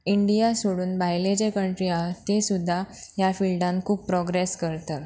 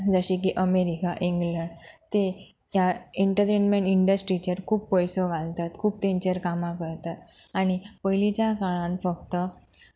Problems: background sounds at intervals